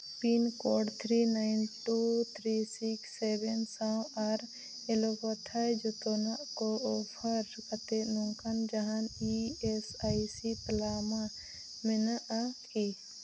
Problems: constant background noise, low volume